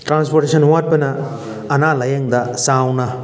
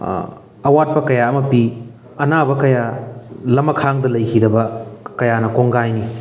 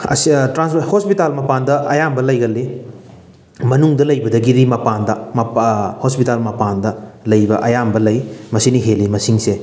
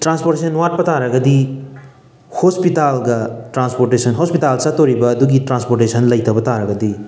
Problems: background sounds at intervals, background conversations at intervals